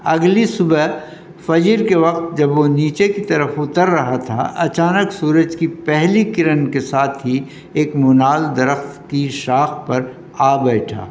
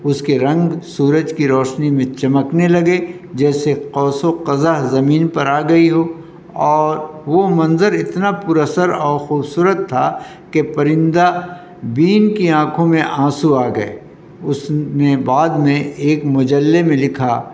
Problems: constant background noise